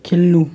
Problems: none marked